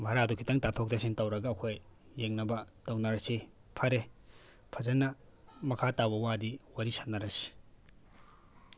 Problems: background sounds at intervals